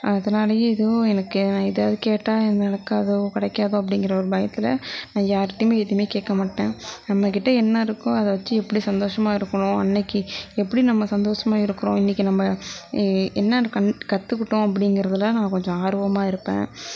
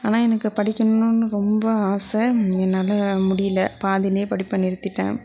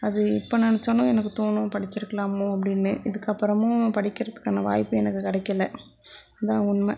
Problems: background conversations at intervals